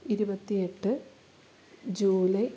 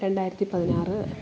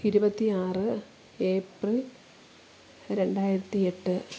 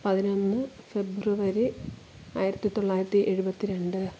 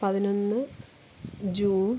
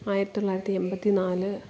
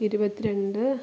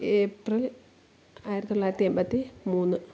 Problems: constant background noise